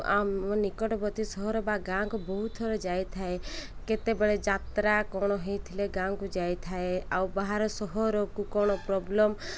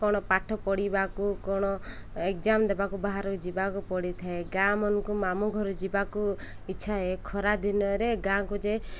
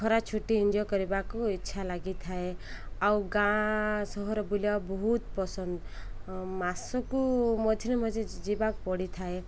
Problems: none marked